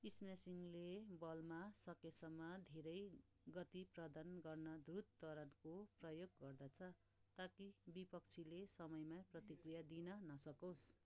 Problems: background conversations at intervals